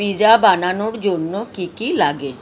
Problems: constant background noise